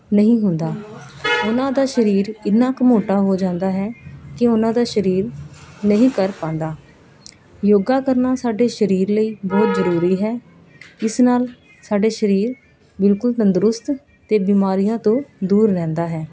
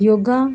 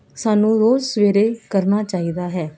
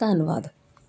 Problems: background sounds at intervals